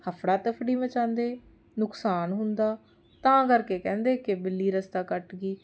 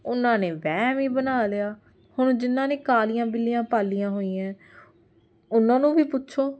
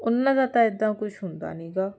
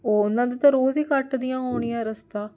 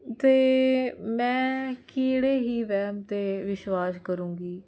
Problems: none marked